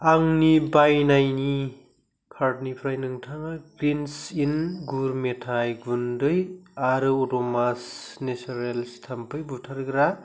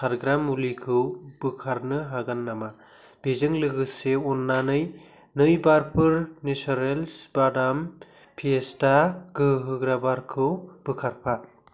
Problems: none marked